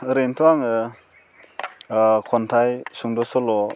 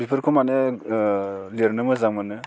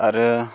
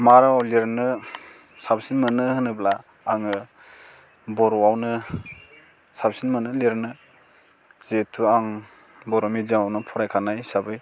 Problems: none marked